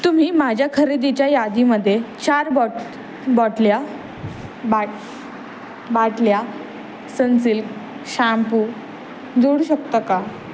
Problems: none marked